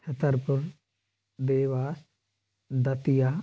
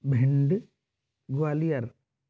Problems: constant background noise